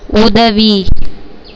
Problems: none marked